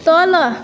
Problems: none marked